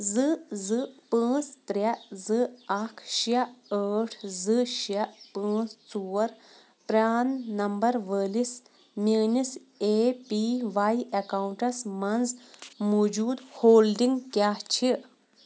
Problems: background sounds at intervals